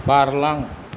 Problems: constant background noise